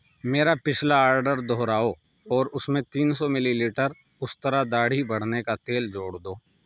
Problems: none marked